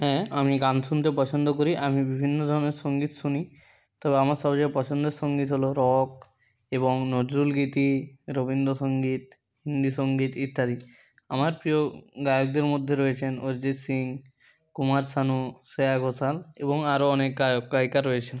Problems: none marked